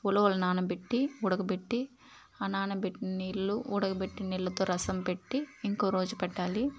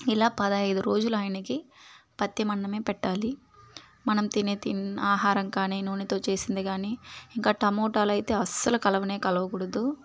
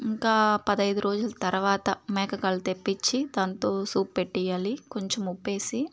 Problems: background sounds at intervals